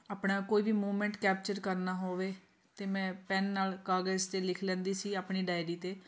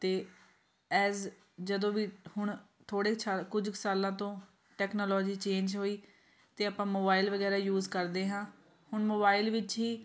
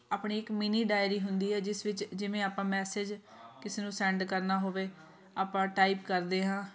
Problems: continuous background conversations